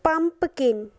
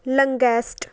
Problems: none marked